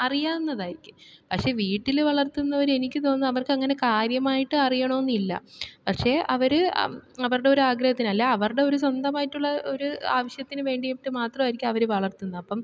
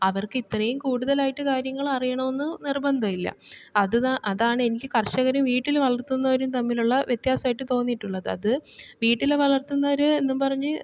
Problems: none marked